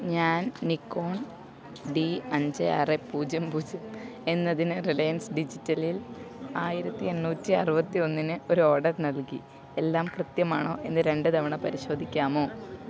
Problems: none marked